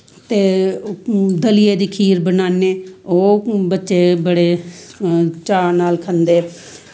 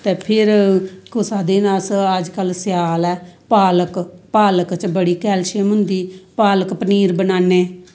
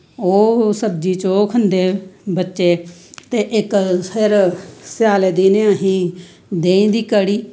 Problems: none marked